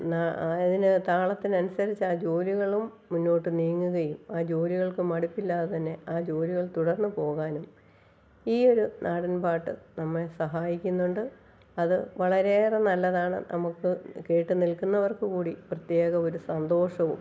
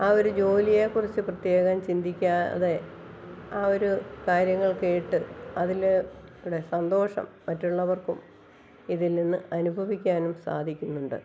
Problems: background sounds at intervals, low volume